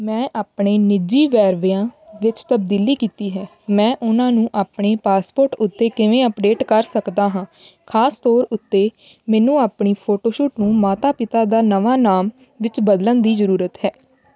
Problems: continuous background conversations